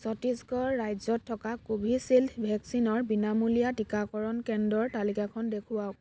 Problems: background sounds at intervals